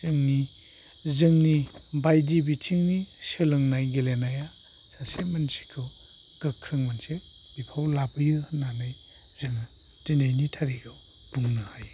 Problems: constant background noise